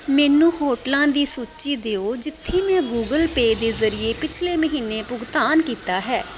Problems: background sounds at intervals